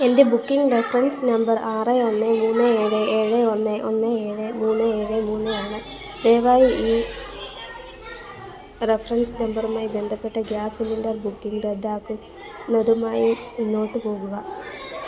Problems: continuous background conversations, low volume